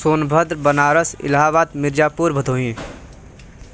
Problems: constant background noise